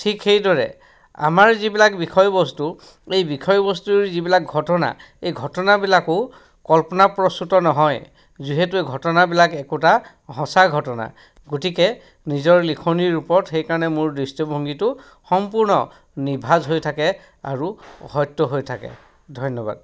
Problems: background sounds at intervals, background conversations at intervals